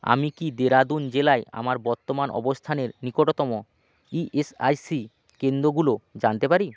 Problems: constant background noise